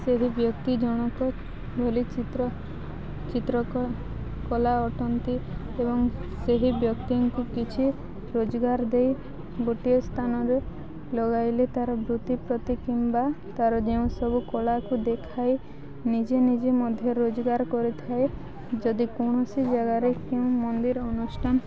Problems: constant background noise, continuous background conversations